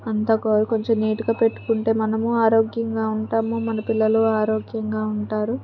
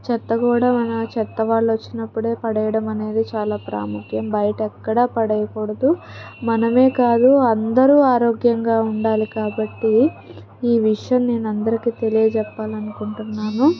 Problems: background sounds at intervals